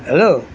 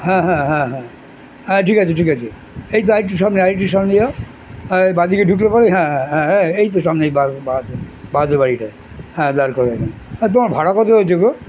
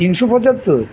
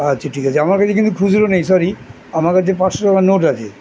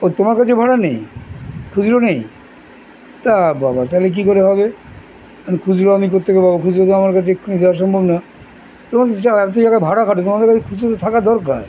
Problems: none marked